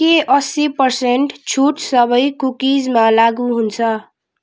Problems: none marked